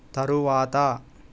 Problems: none marked